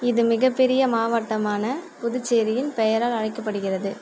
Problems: constant background noise